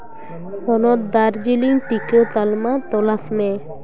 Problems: background sounds at intervals, continuous background conversations